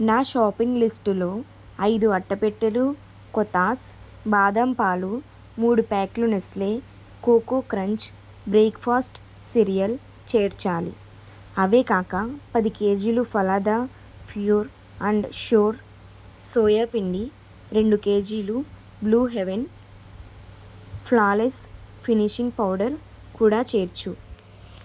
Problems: constant background noise